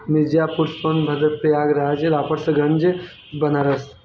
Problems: constant background noise